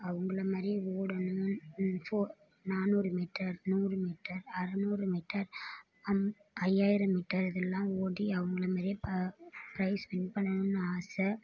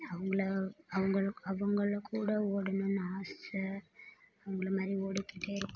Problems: low volume